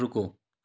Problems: none marked